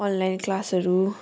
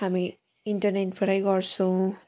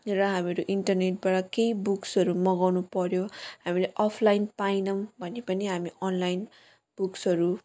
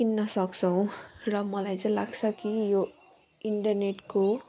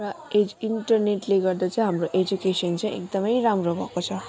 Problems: continuous background conversations